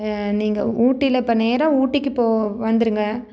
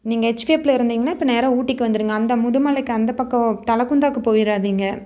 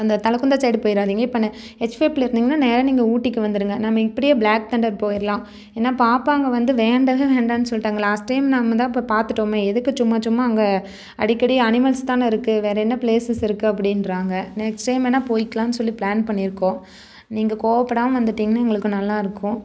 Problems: none marked